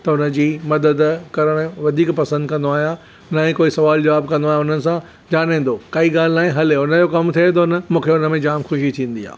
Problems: none marked